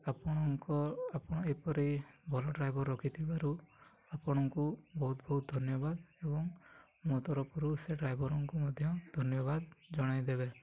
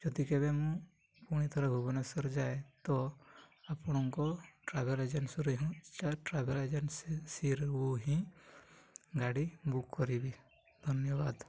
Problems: low volume